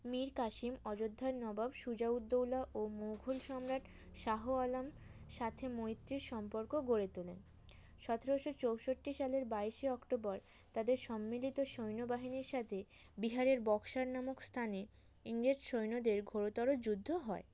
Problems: background sounds at intervals